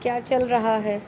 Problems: constant background noise